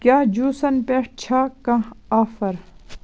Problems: constant background noise